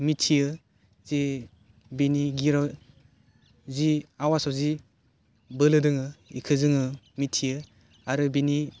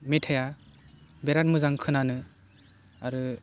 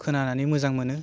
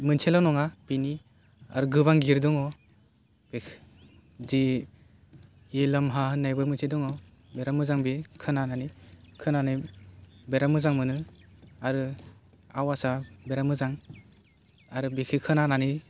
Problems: none marked